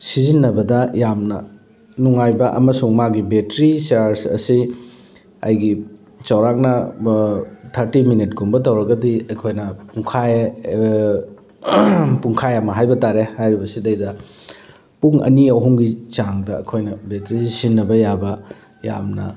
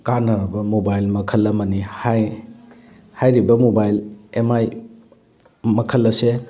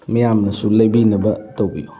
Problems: background sounds at intervals